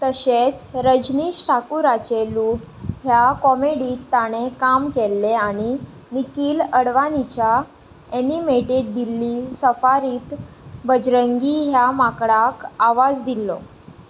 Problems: background sounds at intervals